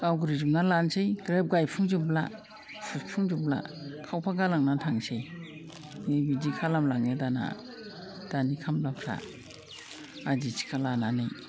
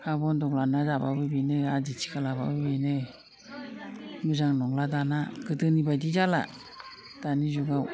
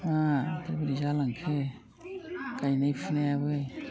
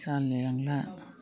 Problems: low volume